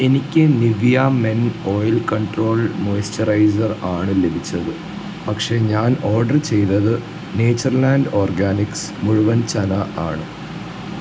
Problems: constant background noise, low volume